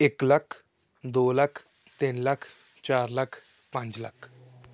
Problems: none marked